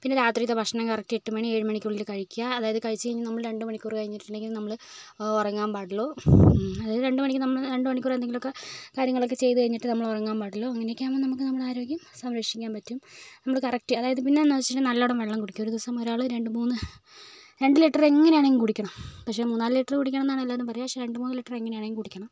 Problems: none marked